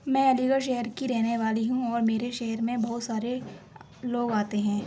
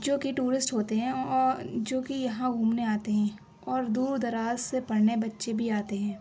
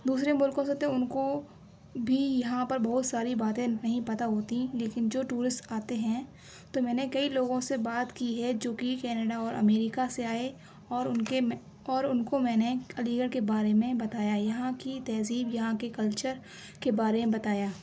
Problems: background sounds at intervals